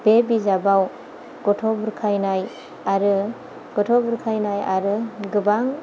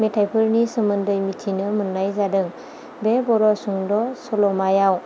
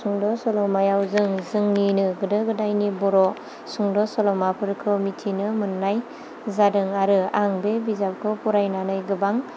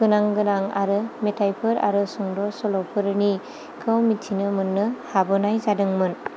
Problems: low volume